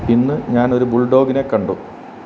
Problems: constant background noise